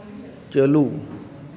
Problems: continuous background conversations